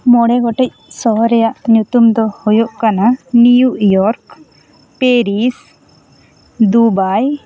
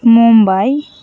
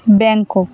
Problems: background sounds at intervals